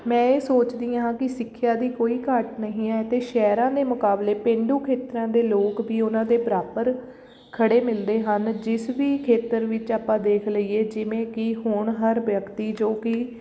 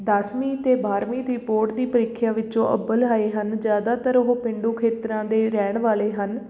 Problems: background sounds at intervals